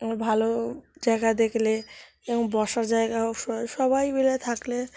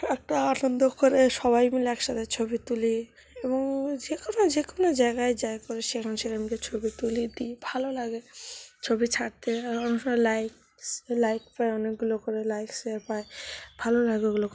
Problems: constant background noise